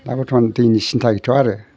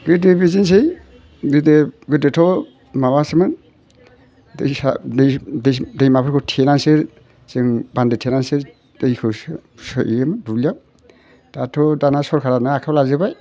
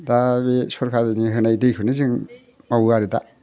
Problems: none marked